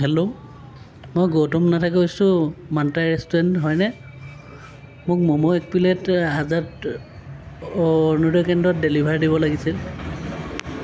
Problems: background sounds at intervals